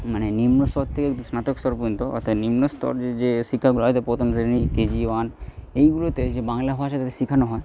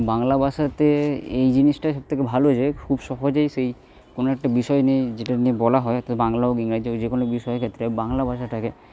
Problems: none marked